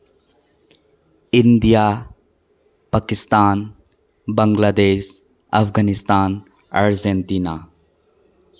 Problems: constant background noise